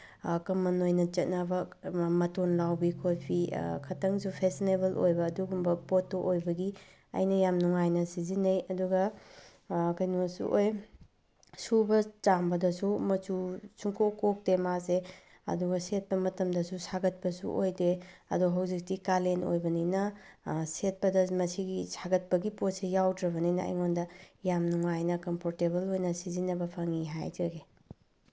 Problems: none marked